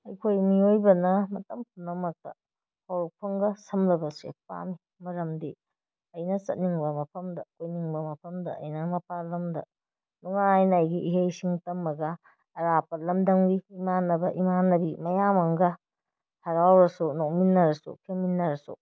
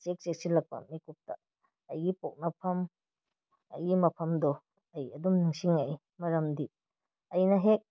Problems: none marked